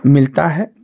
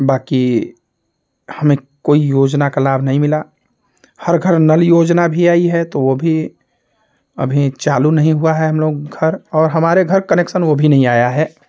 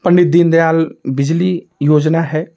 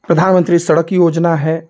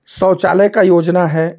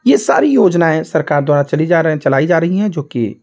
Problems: constant background noise